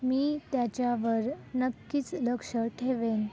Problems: constant background noise, continuous background conversations